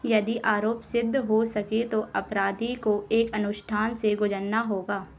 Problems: none marked